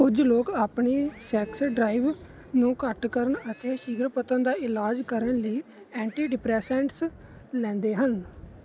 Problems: background sounds at intervals